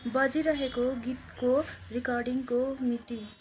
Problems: constant background noise